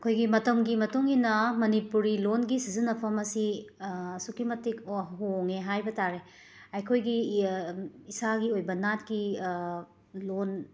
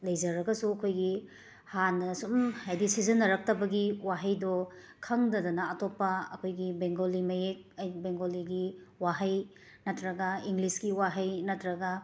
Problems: background sounds at intervals